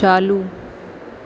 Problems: none marked